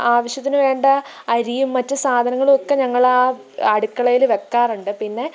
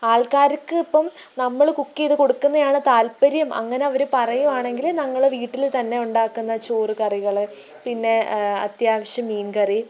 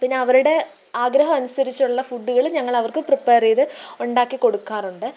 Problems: constant background noise, low volume